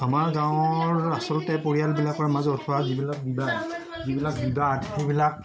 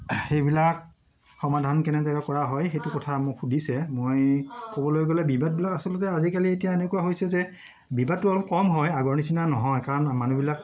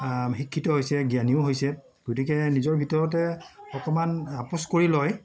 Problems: background sounds at intervals, background conversations at intervals